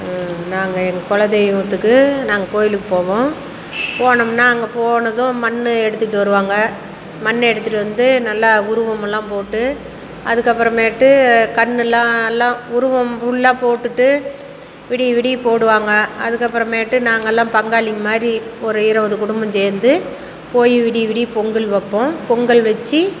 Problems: none marked